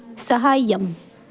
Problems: constant background noise